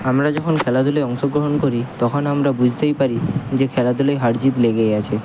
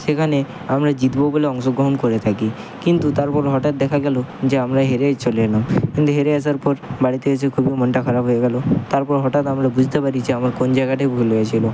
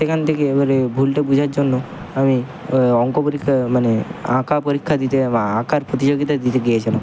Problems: constant background noise